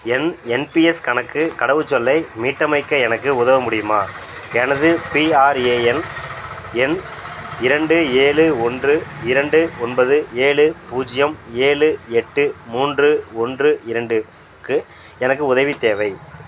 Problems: background sounds at intervals